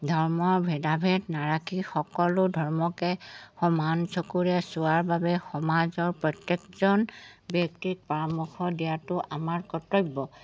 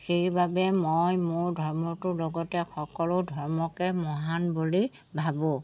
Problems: background sounds at intervals